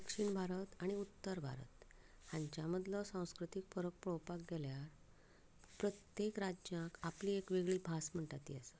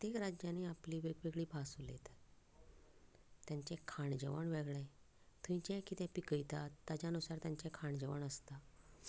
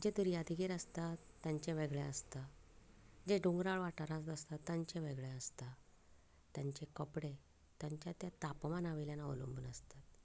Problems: none marked